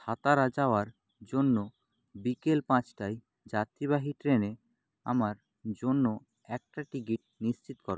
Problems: low volume